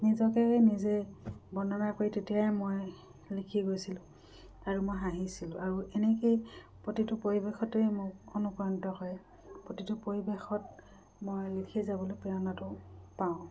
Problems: background sounds at intervals